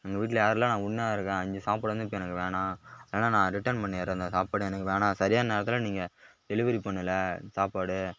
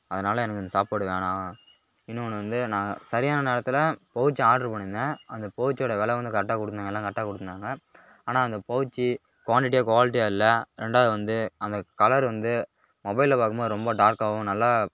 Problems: background sounds at intervals